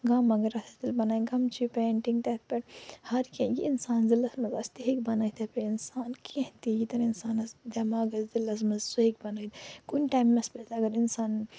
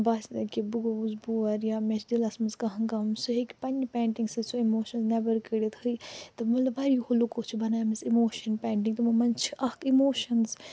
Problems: low volume